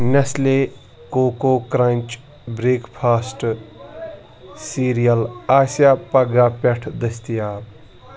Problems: background sounds at intervals